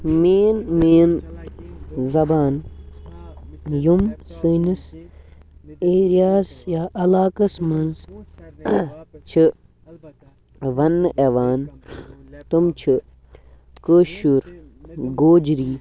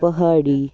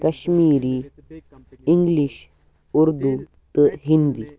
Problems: background sounds at intervals, continuous background conversations